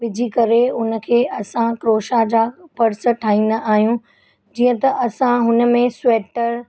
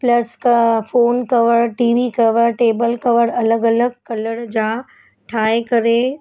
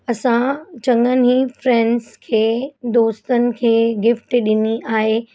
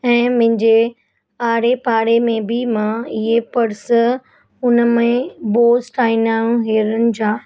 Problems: constant background noise